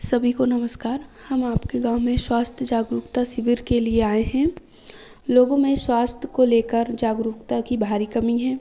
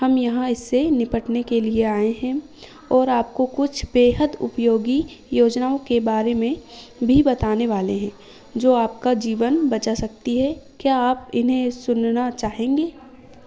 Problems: background sounds at intervals